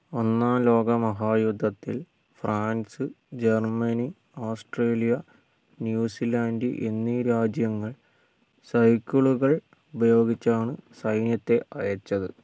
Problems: low volume